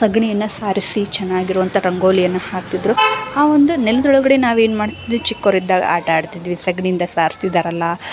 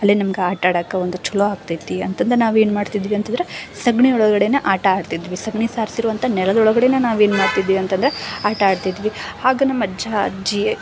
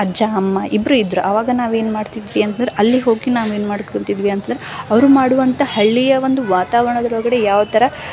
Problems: background sounds at intervals